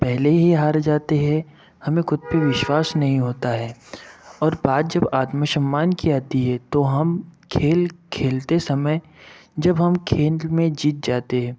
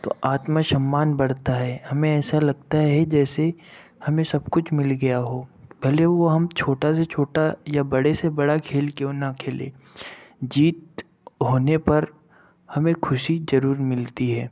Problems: none marked